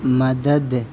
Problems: constant background noise